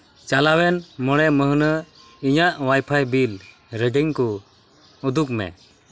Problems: none marked